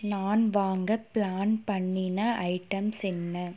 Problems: constant background noise